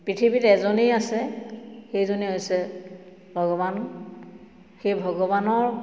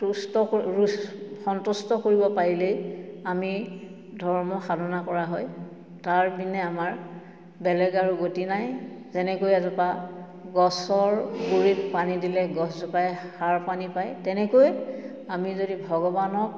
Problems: none marked